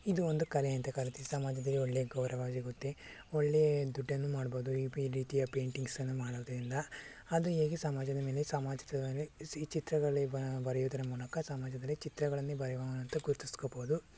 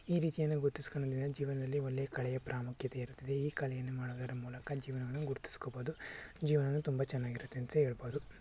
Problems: low volume